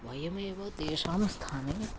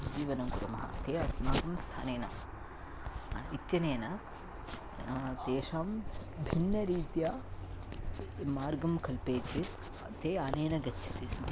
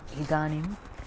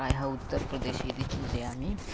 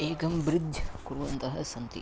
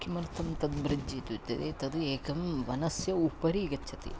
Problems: background sounds at intervals